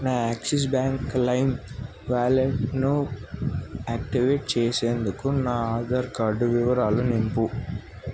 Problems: none marked